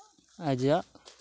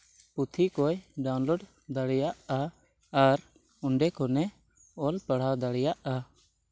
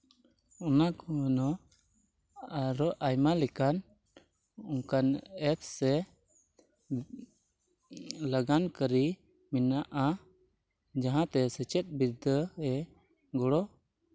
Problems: none marked